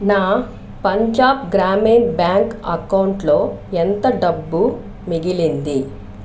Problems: constant background noise